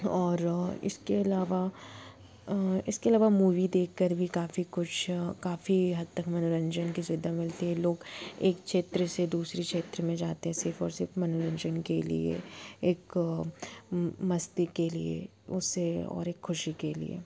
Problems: constant background noise